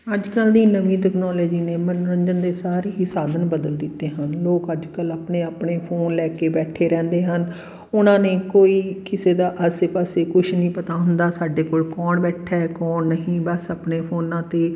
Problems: none marked